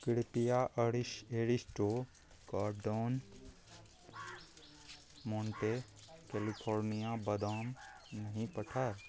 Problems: none marked